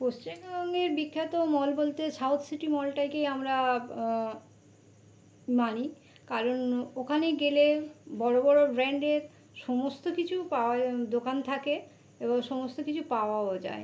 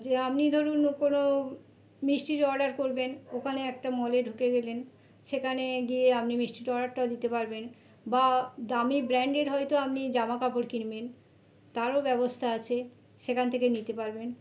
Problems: none marked